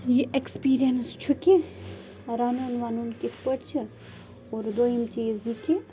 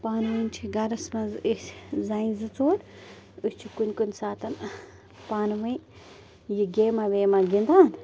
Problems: constant background noise